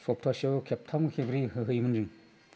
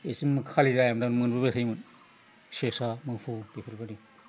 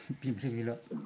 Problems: constant background noise